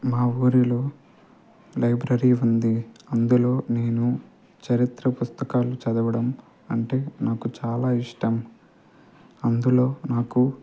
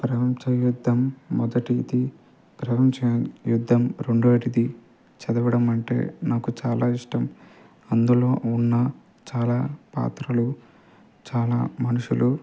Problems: constant background noise